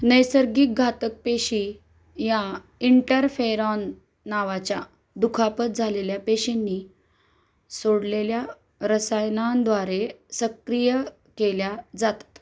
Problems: none marked